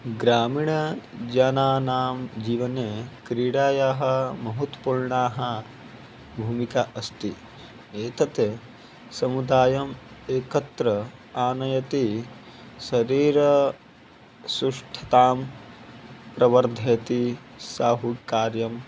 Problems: none marked